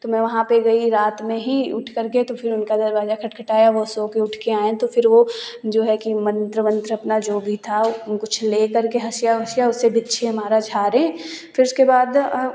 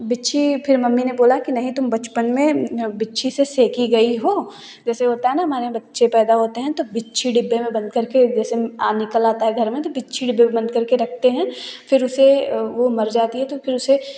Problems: none marked